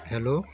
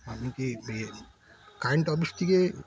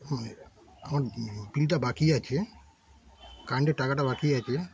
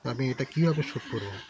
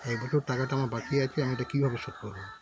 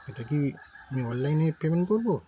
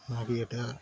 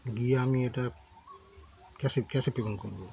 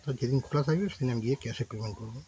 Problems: constant background noise, background conversations at intervals